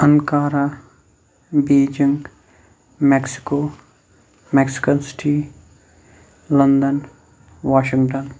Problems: none marked